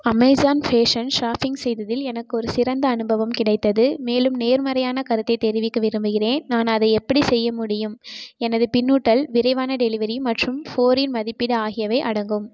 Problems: constant background noise